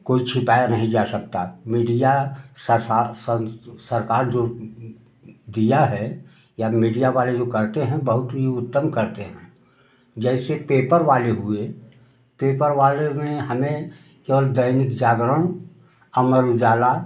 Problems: background sounds at intervals